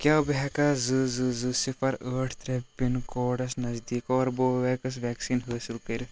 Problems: constant background noise, low volume